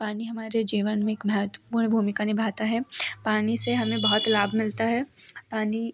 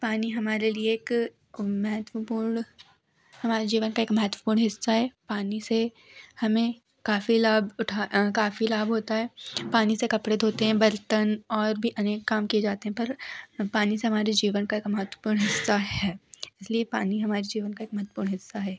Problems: background sounds at intervals, background conversations at intervals